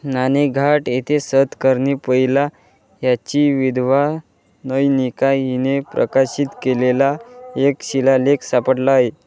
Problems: background sounds at intervals, background conversations at intervals